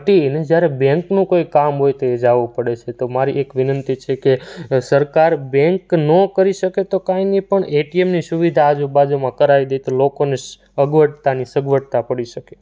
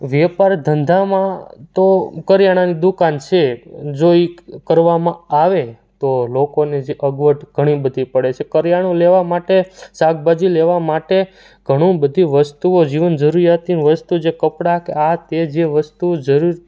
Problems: none marked